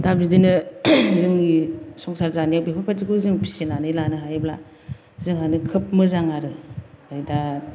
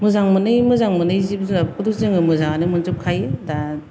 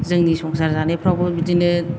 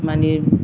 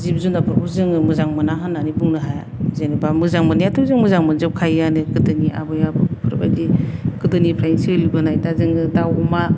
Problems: none marked